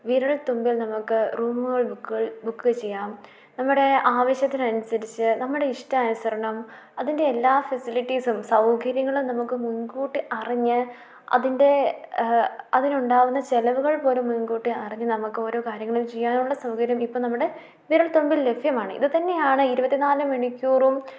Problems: none marked